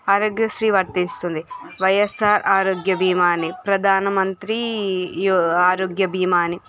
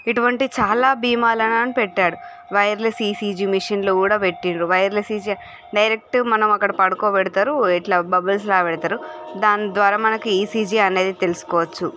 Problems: background sounds at intervals